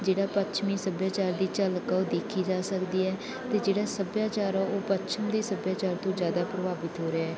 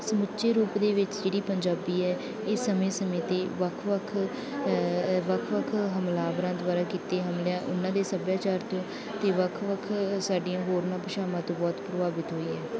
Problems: background sounds at intervals